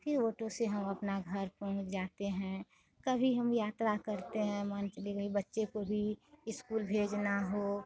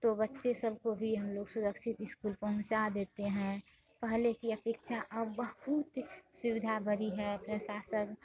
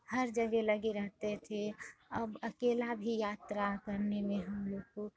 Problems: constant background noise, background conversations at intervals